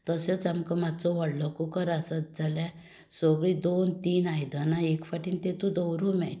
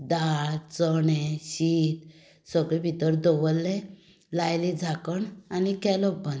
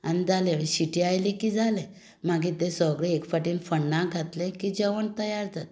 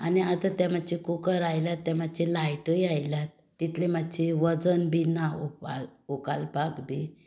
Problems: none marked